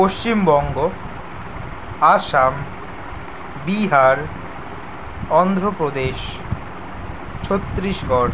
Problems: constant background noise